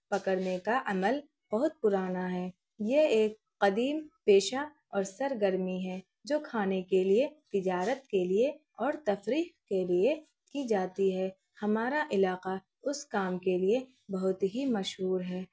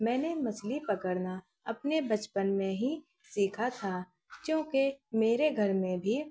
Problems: background sounds at intervals